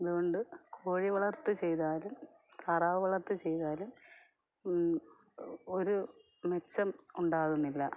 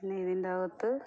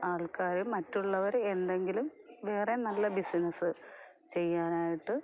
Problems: none marked